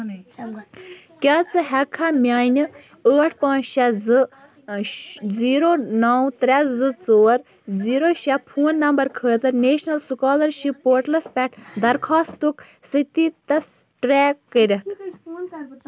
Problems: background sounds at intervals, background conversations at intervals